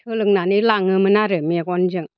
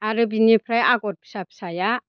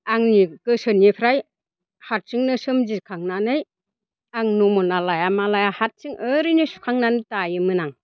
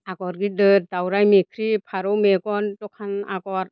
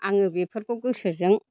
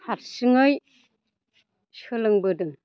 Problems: none marked